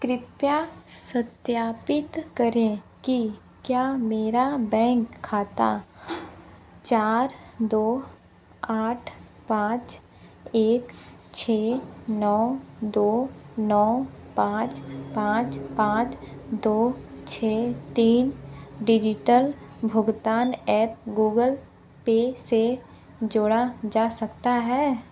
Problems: constant background noise